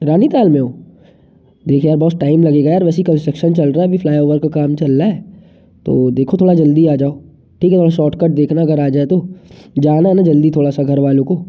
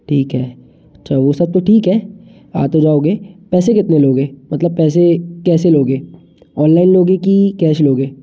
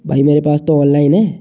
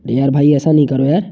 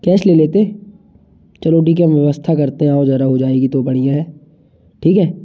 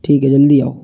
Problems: background sounds at intervals, echo